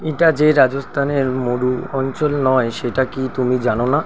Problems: constant background noise